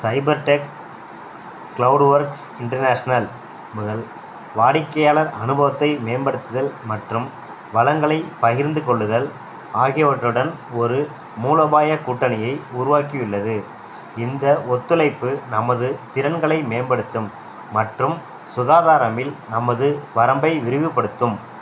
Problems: none marked